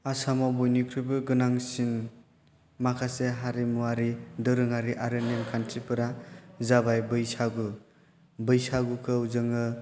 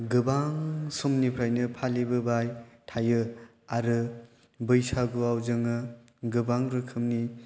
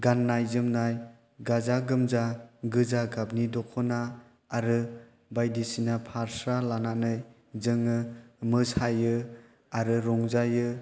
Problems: none marked